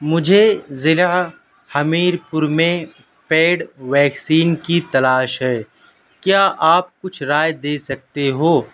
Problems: none marked